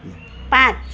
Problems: low volume